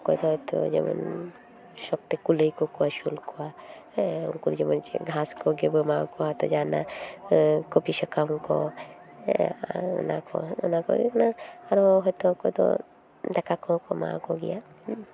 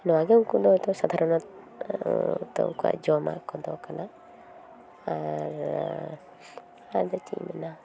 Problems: constant background noise, background conversations at intervals